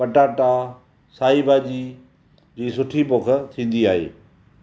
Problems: none marked